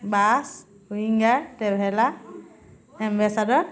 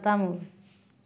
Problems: none marked